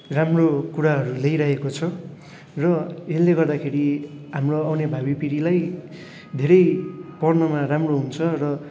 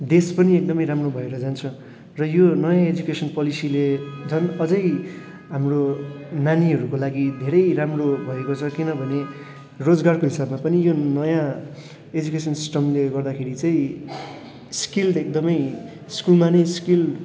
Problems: none marked